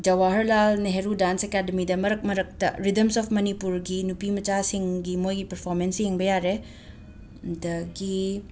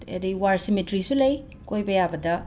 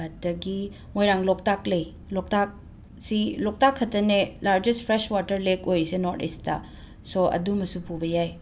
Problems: background sounds at intervals